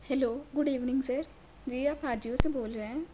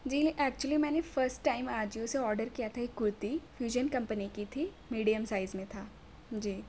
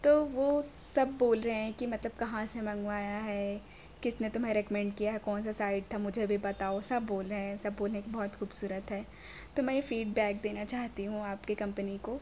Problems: none marked